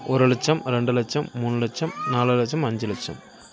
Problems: background conversations at intervals